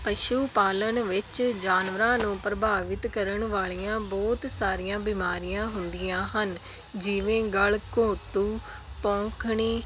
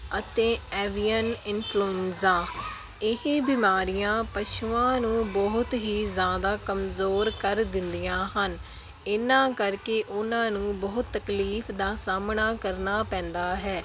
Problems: background sounds at intervals